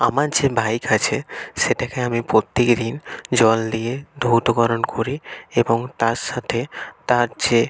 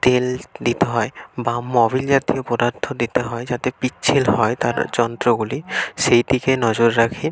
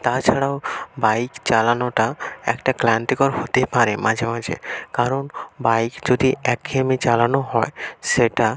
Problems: constant background noise